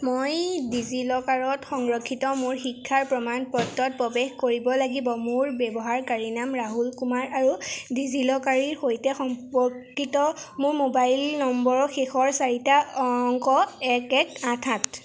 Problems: background sounds at intervals